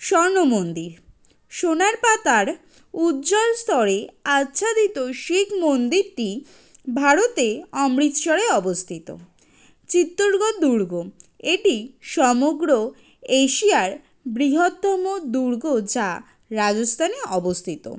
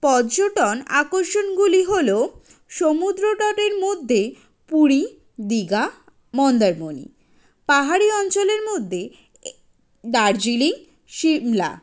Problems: none marked